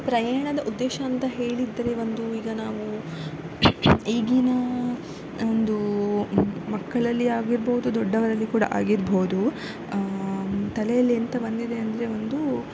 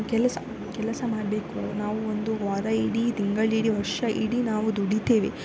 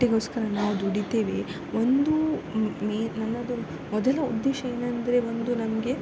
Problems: none marked